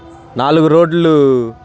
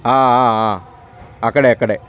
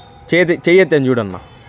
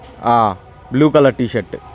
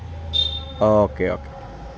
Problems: background sounds at intervals, continuous background conversations